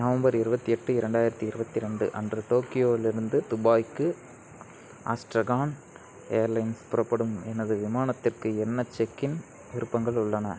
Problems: none marked